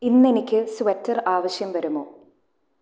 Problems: low volume